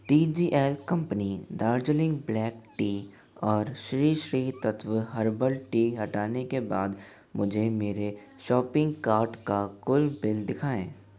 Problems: none marked